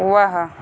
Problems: constant background noise